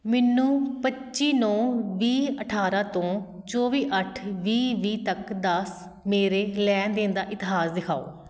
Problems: none marked